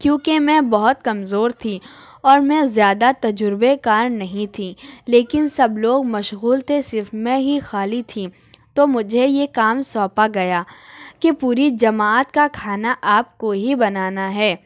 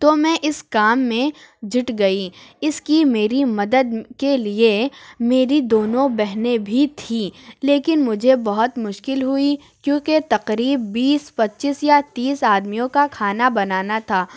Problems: none marked